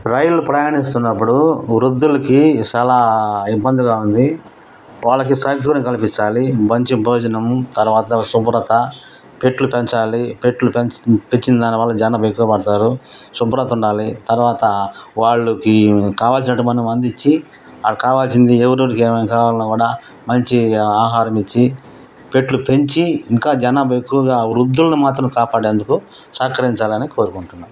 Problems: none marked